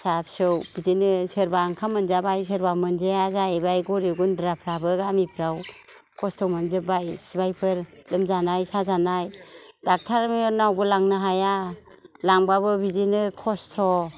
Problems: low volume